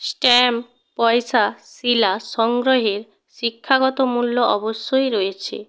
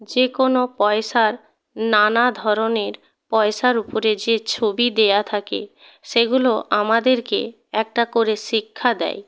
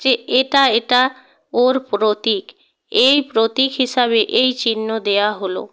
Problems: background sounds at intervals